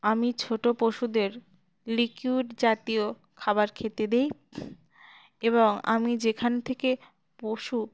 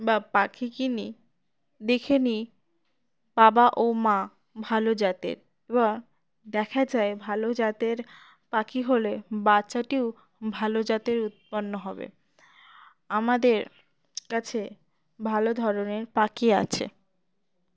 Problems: none marked